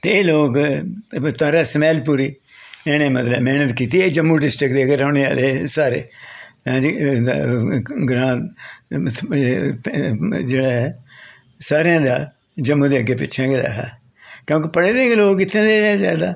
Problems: none marked